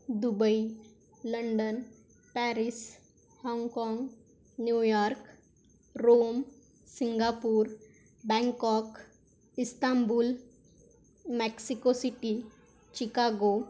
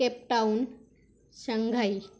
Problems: none marked